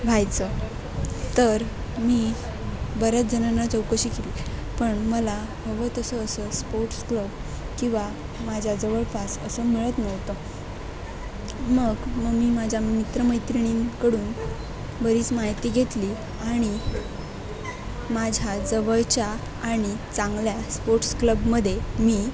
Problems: constant background noise, background conversations at intervals